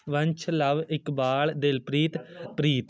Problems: background conversations at intervals